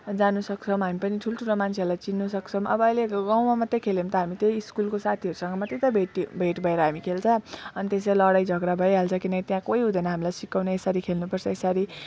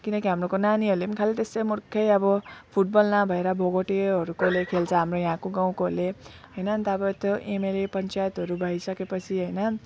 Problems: background sounds at intervals, low volume